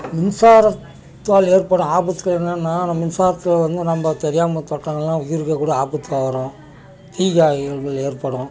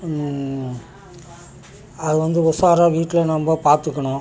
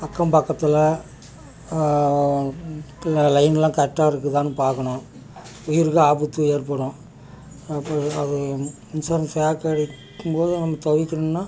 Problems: continuous background conversations